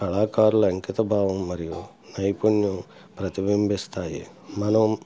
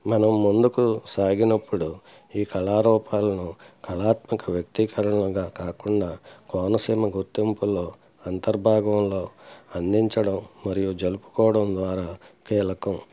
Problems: background sounds at intervals